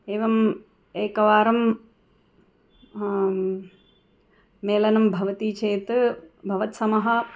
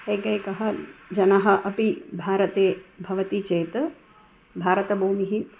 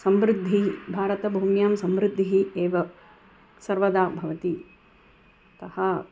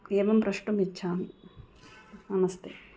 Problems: background sounds at intervals